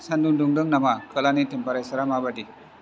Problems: constant background noise